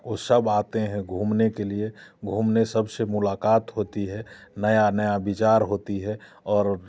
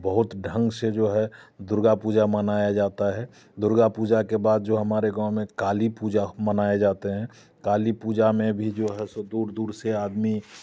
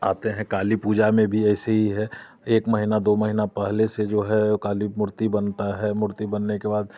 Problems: constant background noise, background conversations at intervals